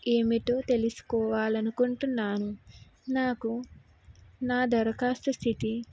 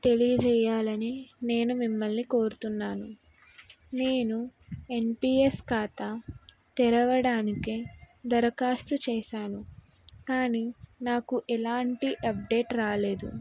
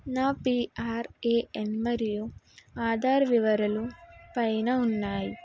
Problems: background sounds at intervals